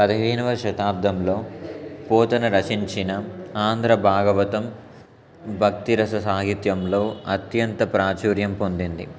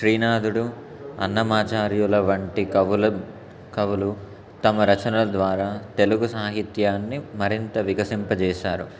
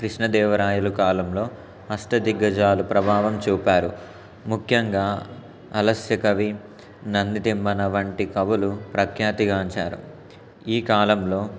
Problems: constant background noise